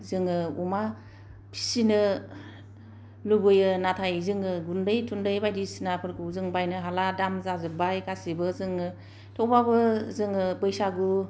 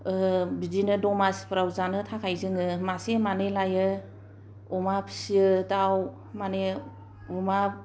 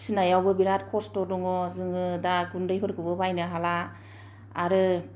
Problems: none marked